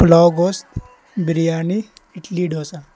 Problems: constant background noise